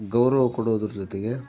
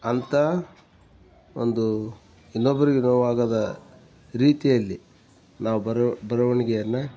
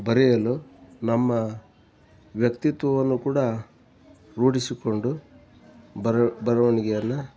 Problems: background sounds at intervals